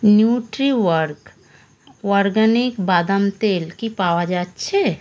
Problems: none marked